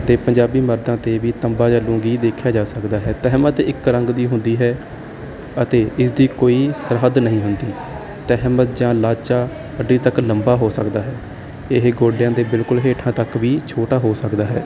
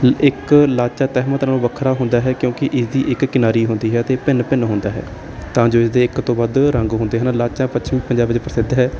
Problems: none marked